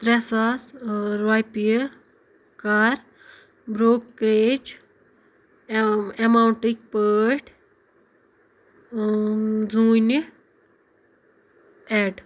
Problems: background sounds at intervals